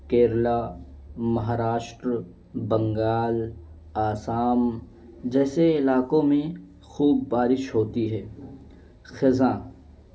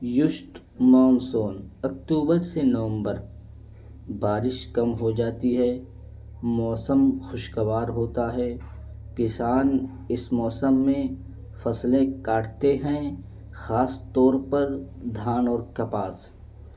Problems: low volume